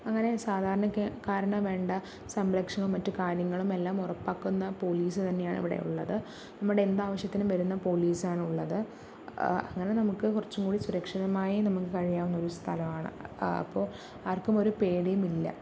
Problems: none marked